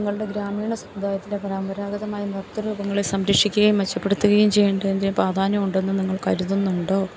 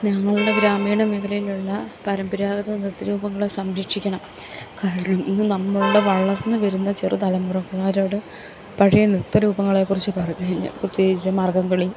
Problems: none marked